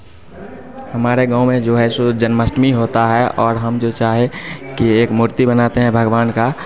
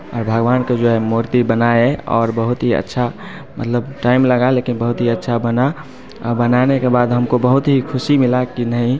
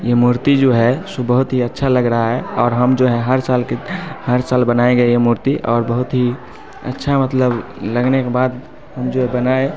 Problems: none marked